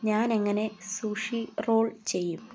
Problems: background sounds at intervals